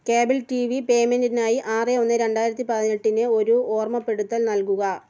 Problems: none marked